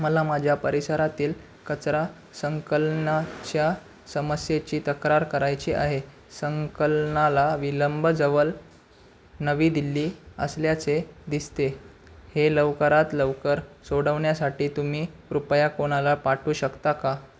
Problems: background sounds at intervals